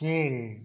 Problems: none marked